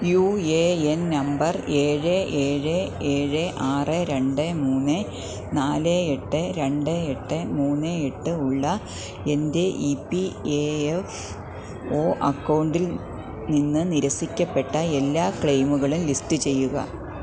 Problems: constant background noise, low volume